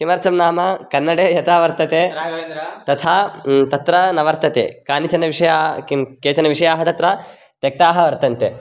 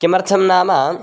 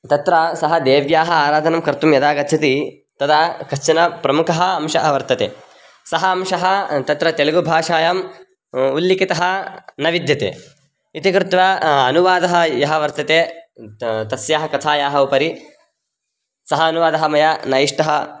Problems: background conversations at intervals